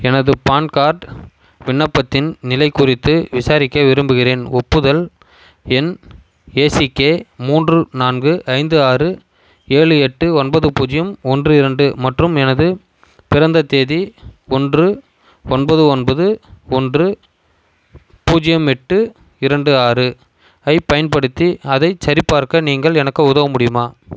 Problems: constant background noise